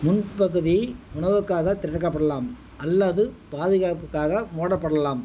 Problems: constant background noise